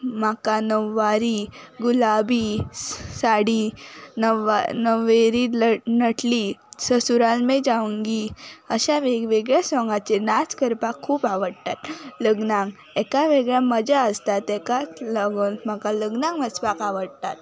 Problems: constant background noise